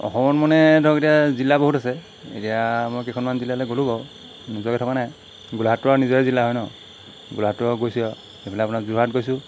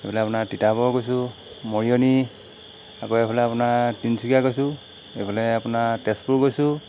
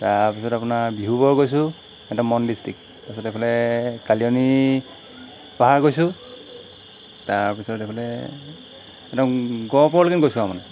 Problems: constant background noise